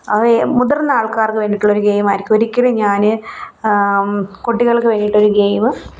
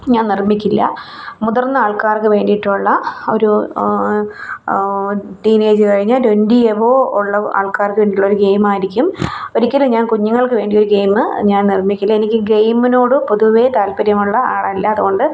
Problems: none marked